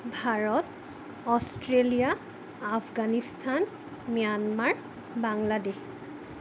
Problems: constant background noise